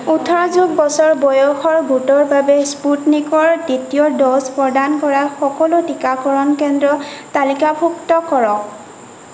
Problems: constant background noise